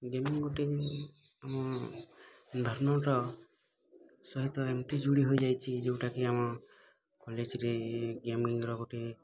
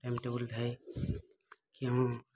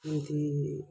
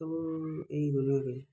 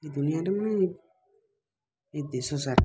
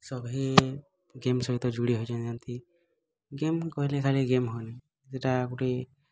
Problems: constant background noise, continuous background conversations